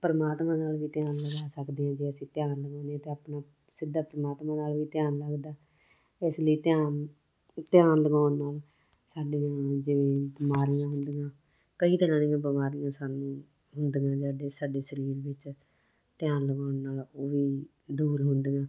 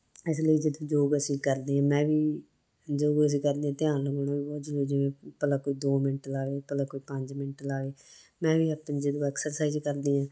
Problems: none marked